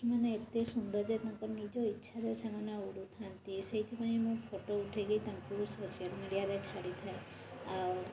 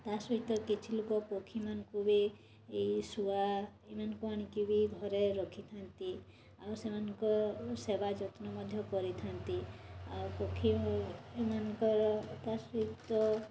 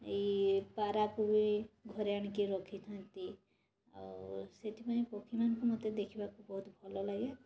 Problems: constant background noise